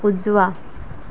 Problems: constant background noise